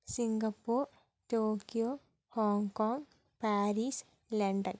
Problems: low volume